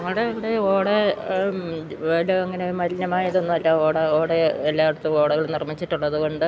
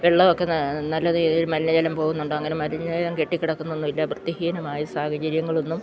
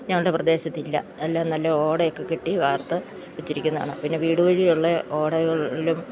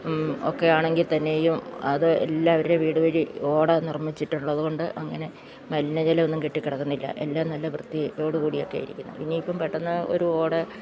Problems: background sounds at intervals